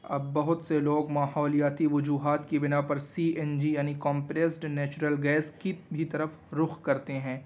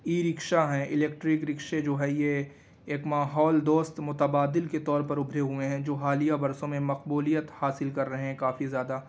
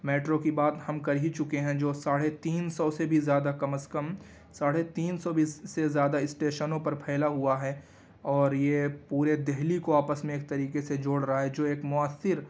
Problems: constant background noise